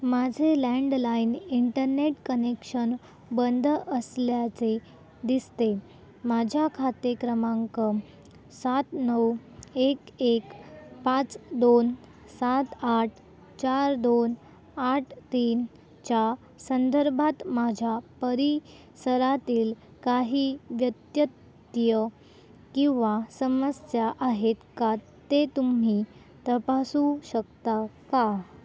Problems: none marked